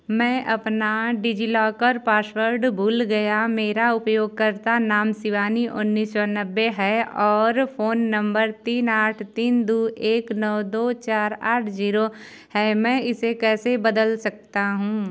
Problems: background sounds at intervals